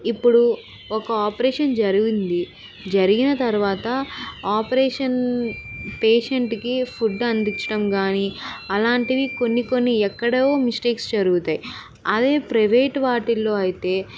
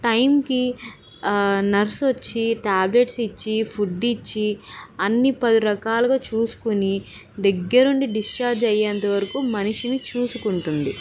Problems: none marked